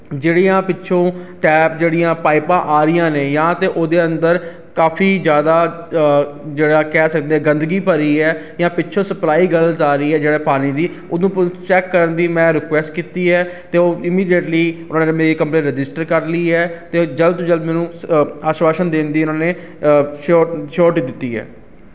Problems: constant background noise